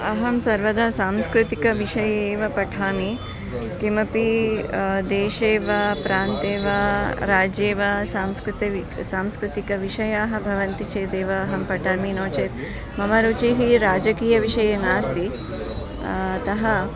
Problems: background sounds at intervals, continuous background conversations